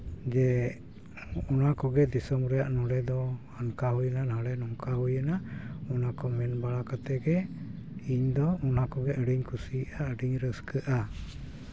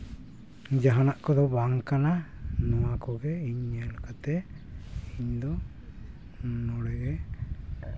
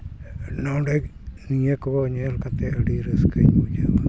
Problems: none marked